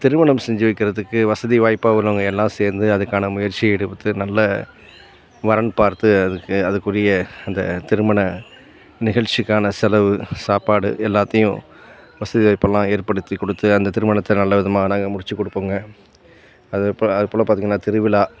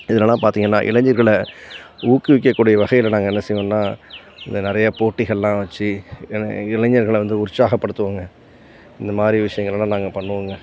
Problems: background sounds at intervals